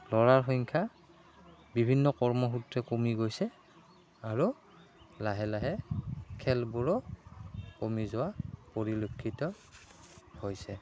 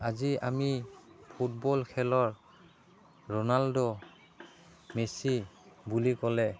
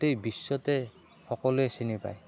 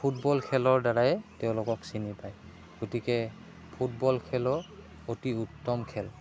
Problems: background sounds at intervals